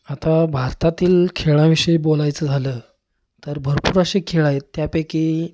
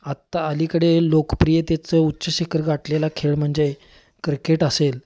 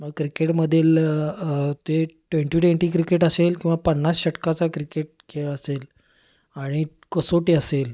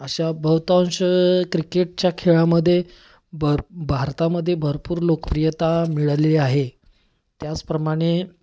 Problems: constant background noise